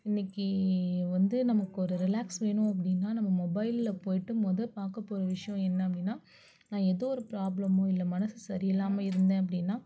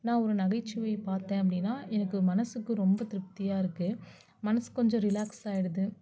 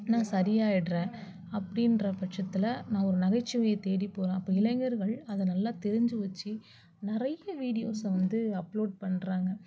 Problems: low volume